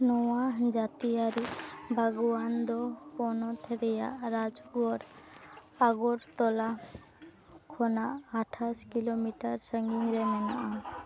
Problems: none marked